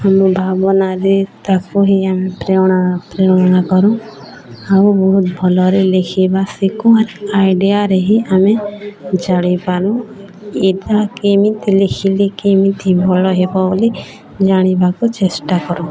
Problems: constant background noise, continuous background conversations